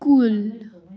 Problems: none marked